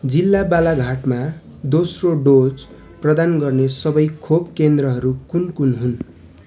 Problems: constant background noise, continuous background conversations